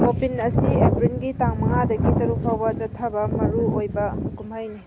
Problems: constant background noise